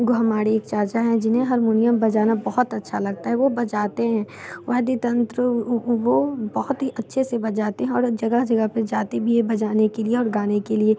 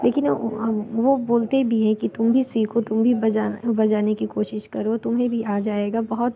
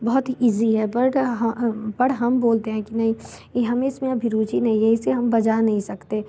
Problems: background sounds at intervals